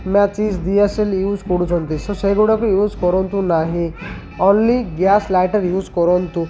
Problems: none marked